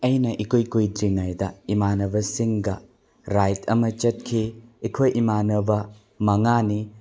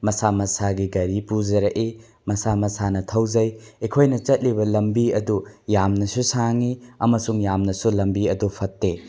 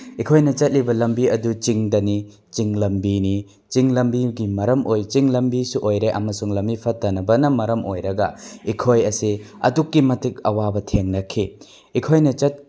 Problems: background sounds at intervals